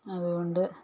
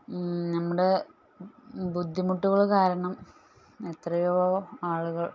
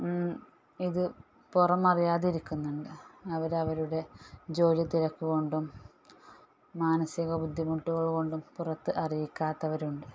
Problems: low volume